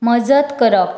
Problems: constant background noise